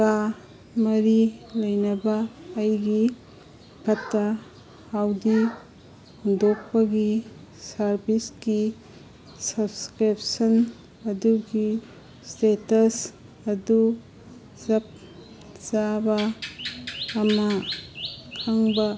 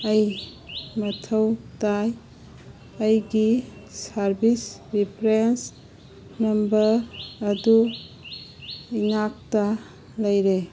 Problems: background sounds at intervals